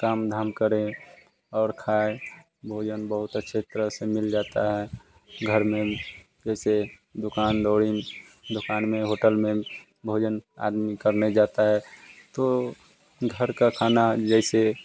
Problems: none marked